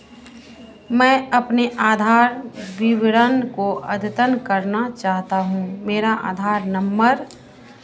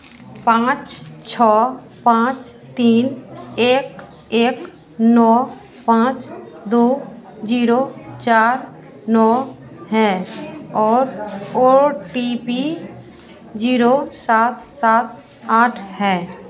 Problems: constant background noise